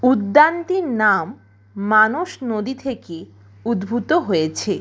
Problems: constant background noise